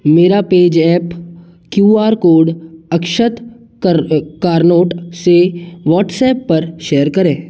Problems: none marked